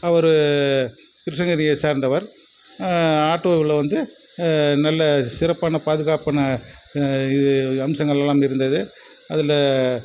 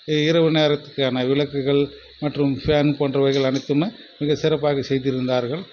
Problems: background sounds at intervals